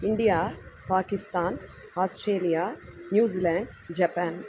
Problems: constant background noise